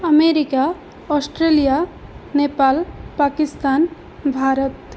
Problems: constant background noise